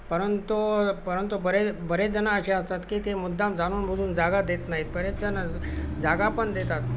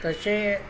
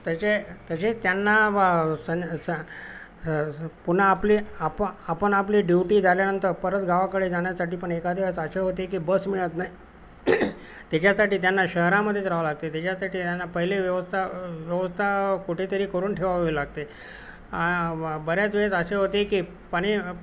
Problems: none marked